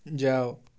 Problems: none marked